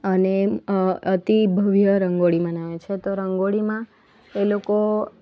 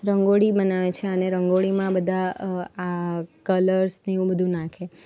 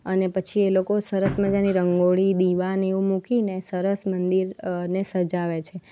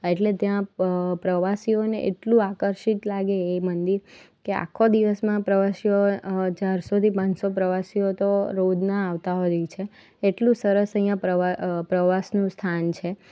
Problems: none marked